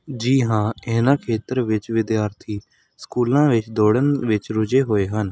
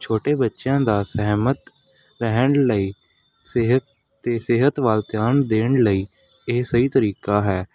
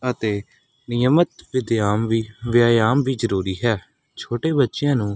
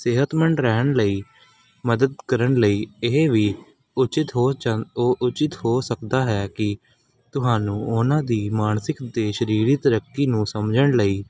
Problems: background sounds at intervals